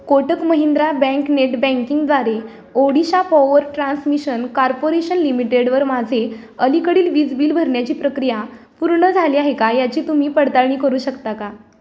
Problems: background sounds at intervals